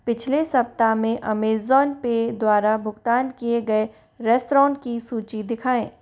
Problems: none marked